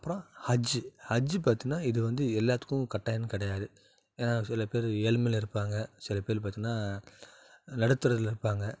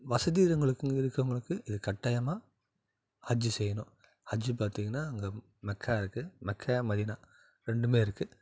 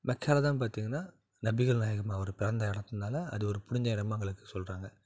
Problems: none marked